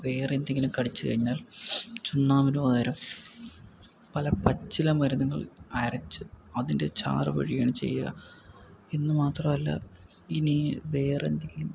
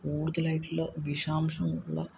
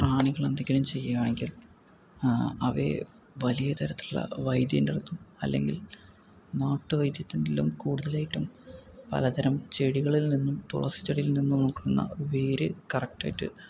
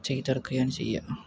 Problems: low volume